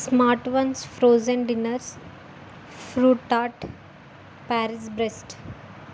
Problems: constant background noise